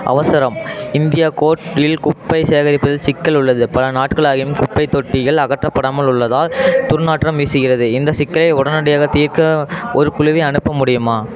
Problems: background conversations at intervals